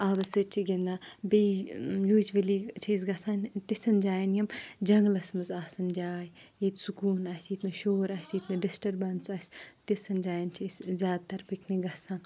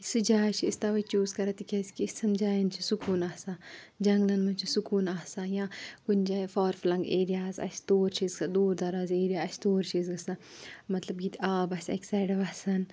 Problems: background sounds at intervals